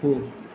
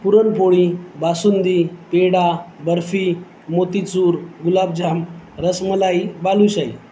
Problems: constant background noise